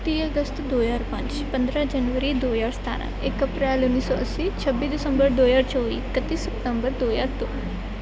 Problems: none marked